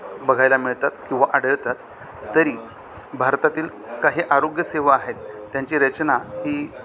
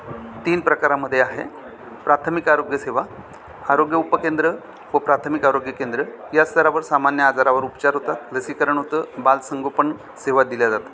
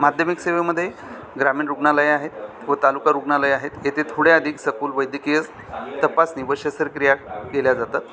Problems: none marked